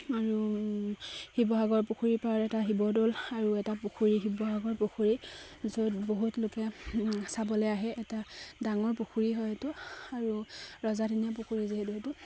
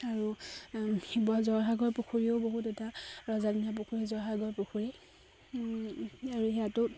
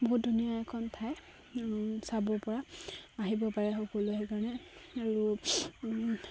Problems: constant background noise, background conversations at intervals